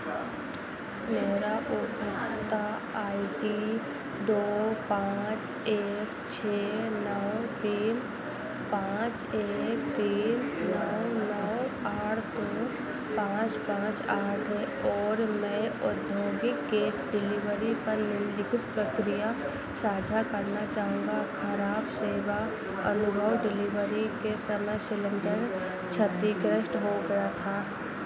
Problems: none marked